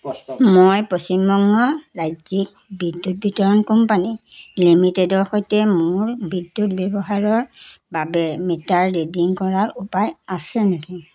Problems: constant background noise, background conversations at intervals